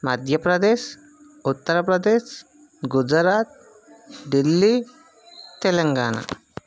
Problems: constant background noise